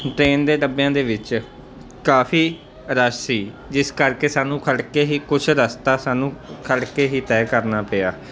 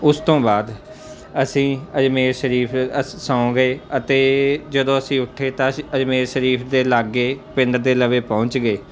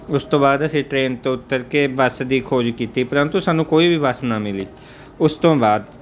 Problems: constant background noise